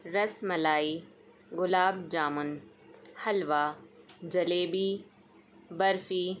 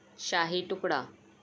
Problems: constant background noise